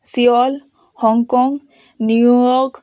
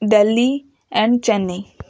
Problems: constant background noise